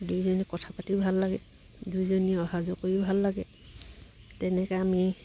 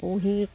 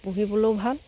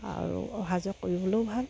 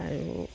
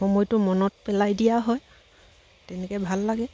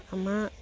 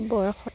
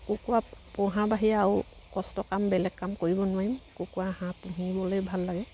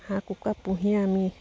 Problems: background sounds at intervals